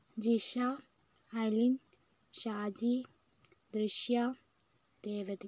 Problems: low volume